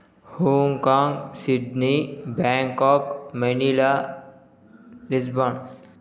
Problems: background sounds at intervals